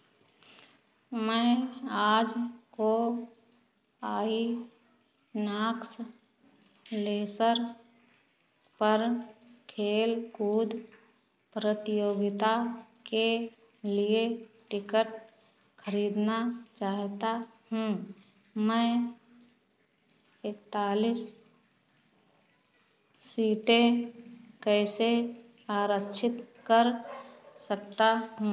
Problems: background sounds at intervals